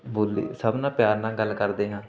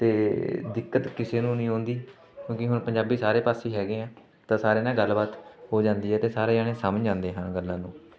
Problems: constant background noise, continuous background conversations